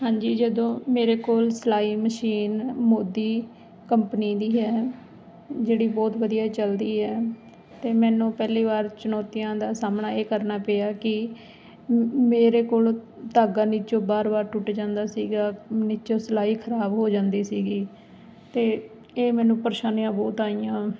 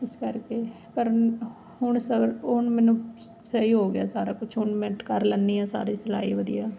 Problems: none marked